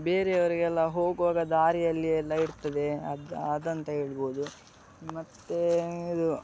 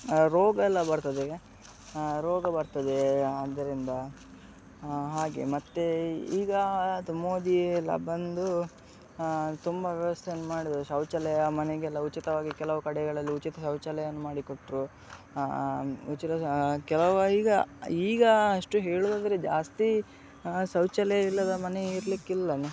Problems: none marked